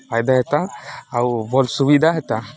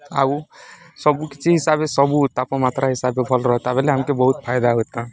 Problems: background sounds at intervals